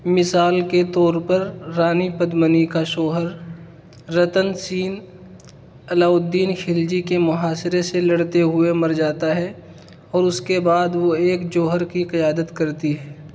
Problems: constant background noise